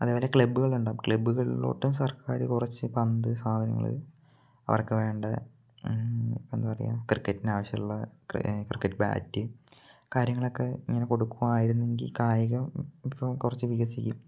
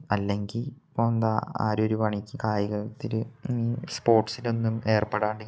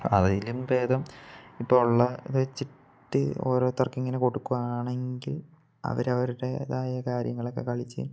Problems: low volume